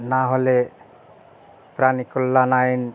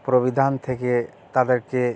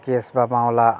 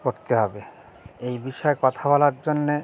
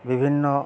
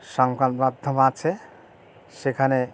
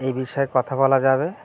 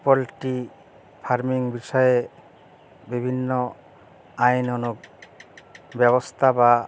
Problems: background sounds at intervals